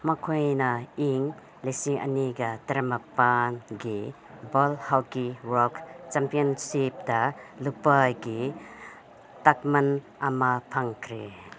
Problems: background sounds at intervals